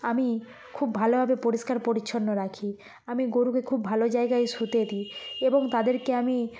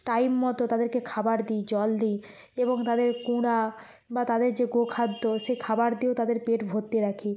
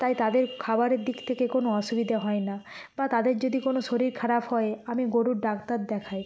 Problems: background sounds at intervals